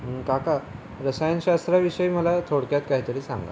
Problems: constant background noise